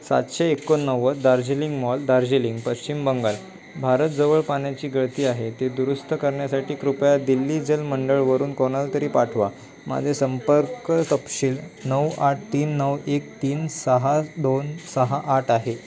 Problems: constant background noise, continuous background conversations